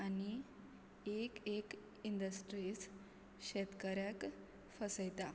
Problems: none marked